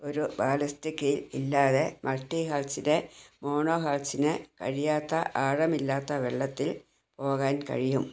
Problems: none marked